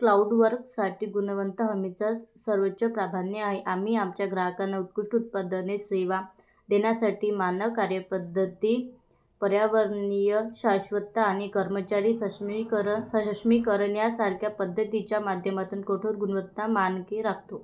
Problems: background sounds at intervals